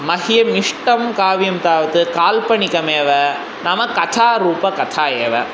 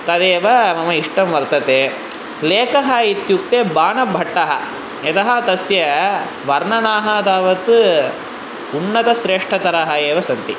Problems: constant background noise